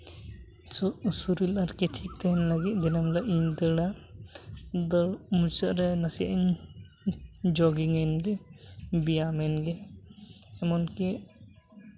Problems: background sounds at intervals